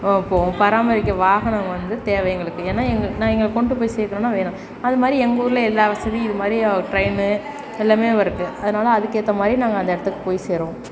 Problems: none marked